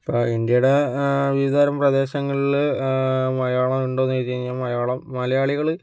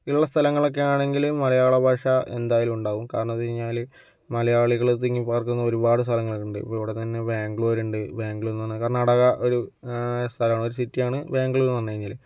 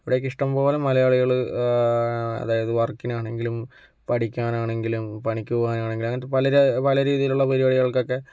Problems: none marked